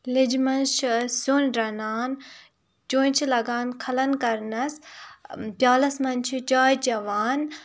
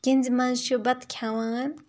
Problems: none marked